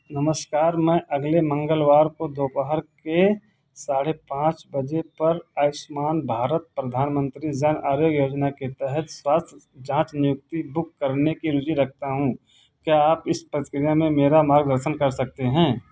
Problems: background sounds at intervals